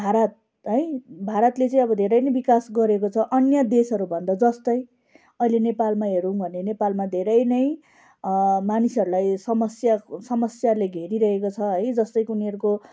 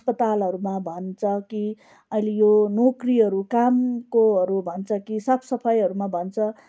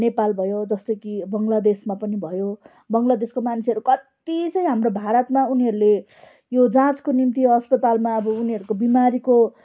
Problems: background sounds at intervals, background conversations at intervals